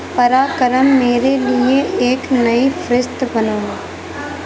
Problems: constant background noise, background conversations at intervals